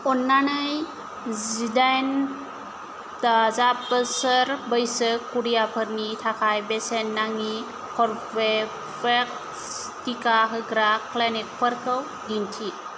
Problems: constant background noise